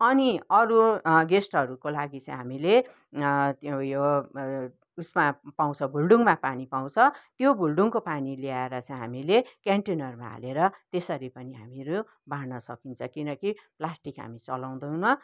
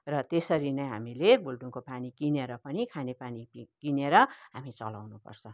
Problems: background conversations at intervals